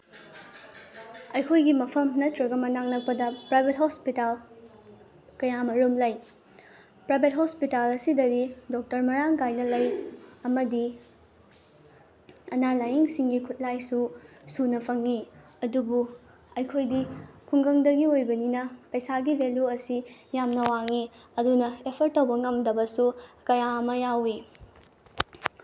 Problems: background sounds at intervals